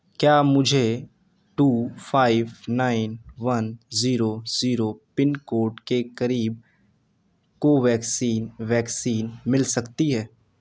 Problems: none marked